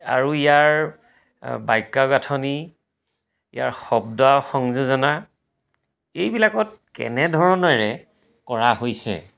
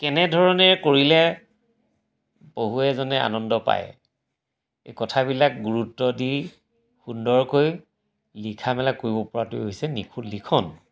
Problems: background sounds at intervals